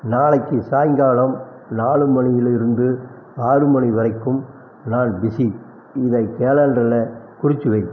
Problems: none marked